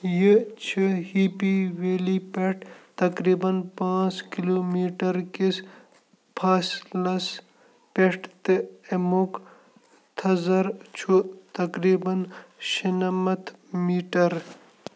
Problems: constant background noise